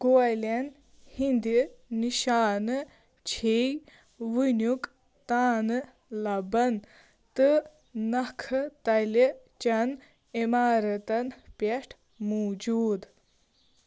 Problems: none marked